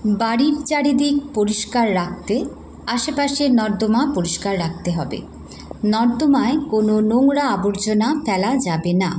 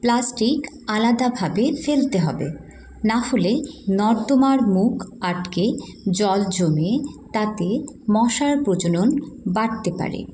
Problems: background sounds at intervals